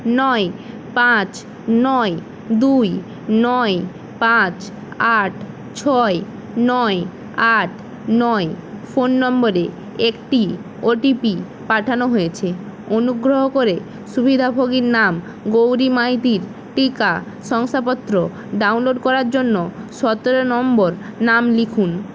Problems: constant background noise